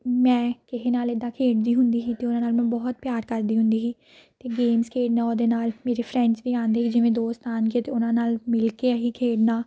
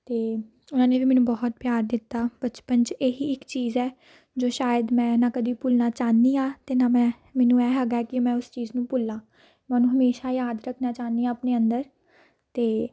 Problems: none marked